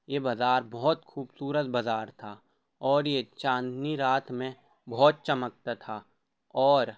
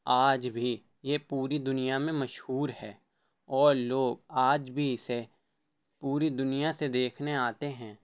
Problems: none marked